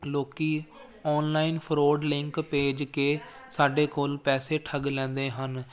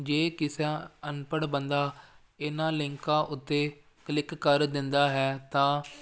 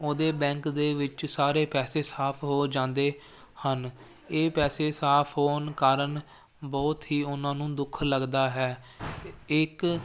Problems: none marked